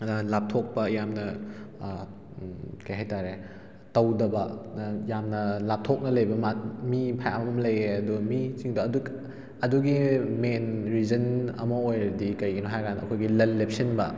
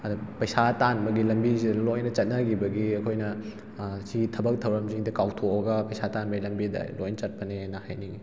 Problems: background sounds at intervals